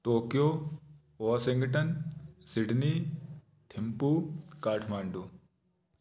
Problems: background sounds at intervals